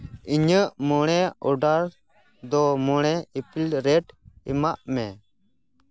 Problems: background sounds at intervals